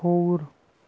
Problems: constant background noise